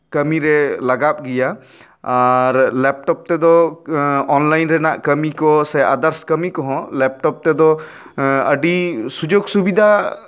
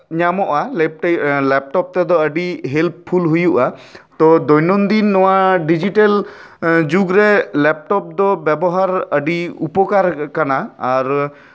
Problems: none marked